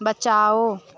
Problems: constant background noise